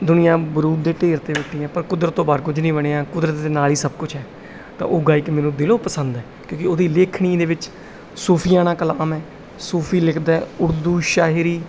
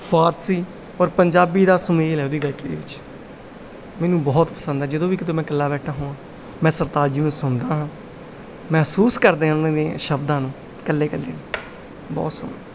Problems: background sounds at intervals